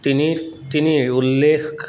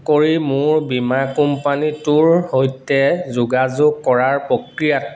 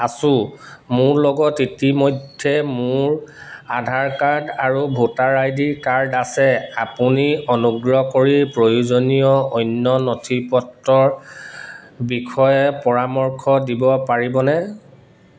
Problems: none marked